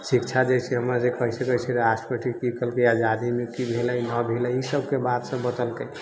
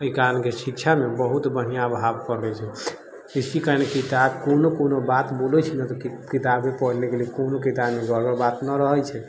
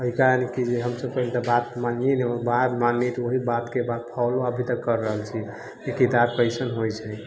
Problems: low volume